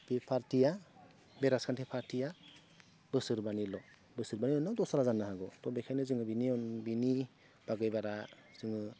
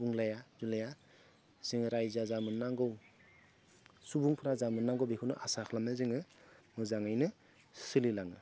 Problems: low volume